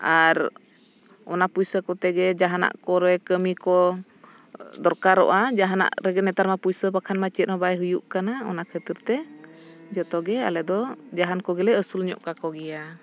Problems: none marked